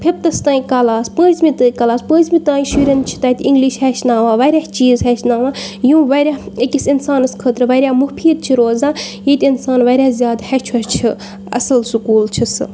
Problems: background sounds at intervals